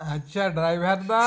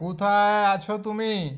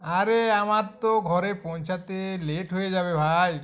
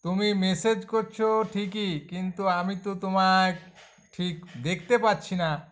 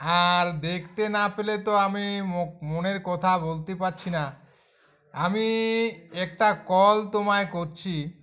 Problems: constant background noise